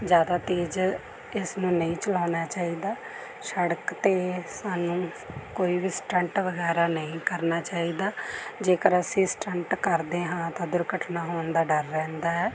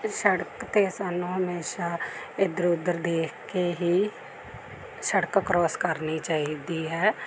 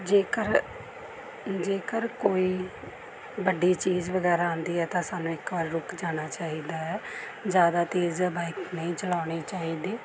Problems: background conversations at intervals